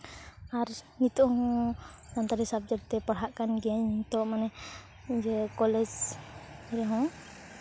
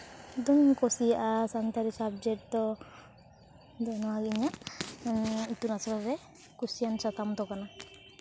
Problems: none marked